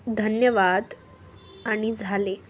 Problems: none marked